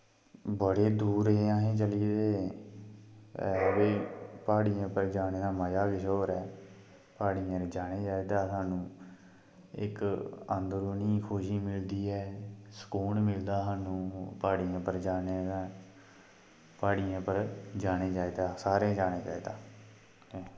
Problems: constant background noise